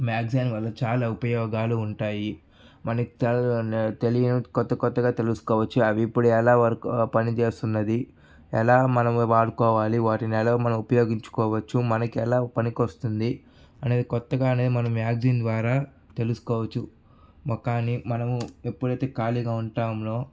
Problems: background sounds at intervals